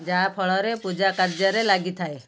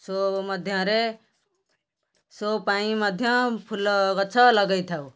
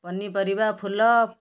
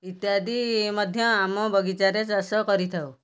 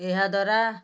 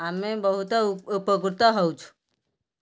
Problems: background sounds at intervals